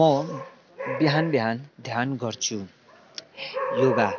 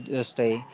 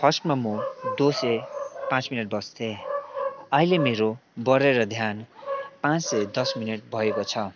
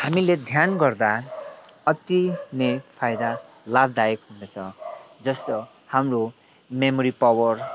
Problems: none marked